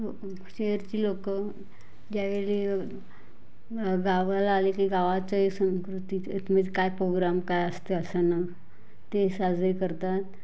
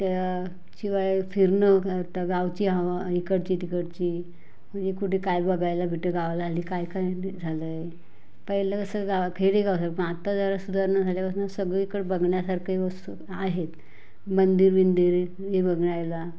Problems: none marked